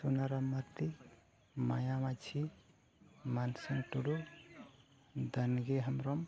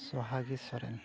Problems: background sounds at intervals, background conversations at intervals